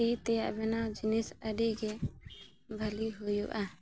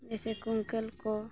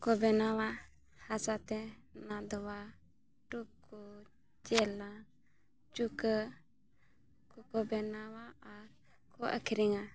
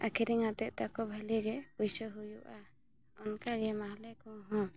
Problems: none marked